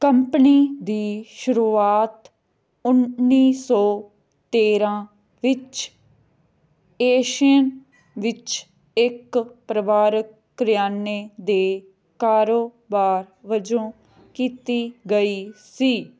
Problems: background conversations at intervals